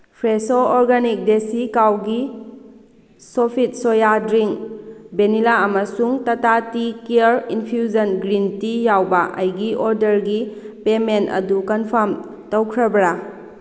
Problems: constant background noise